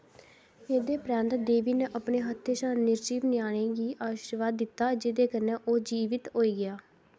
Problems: constant background noise